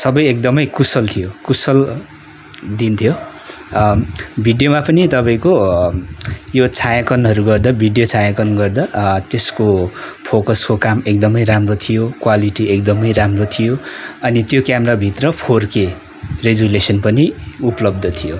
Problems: continuous background conversations